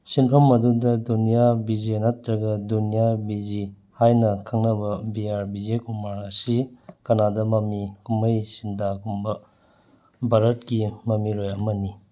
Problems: none marked